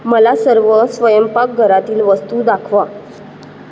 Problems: constant background noise